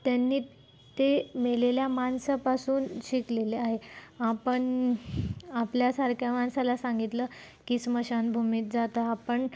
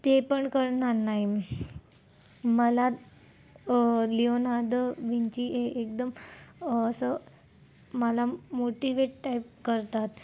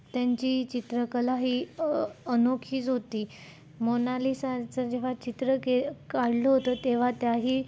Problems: constant background noise, low volume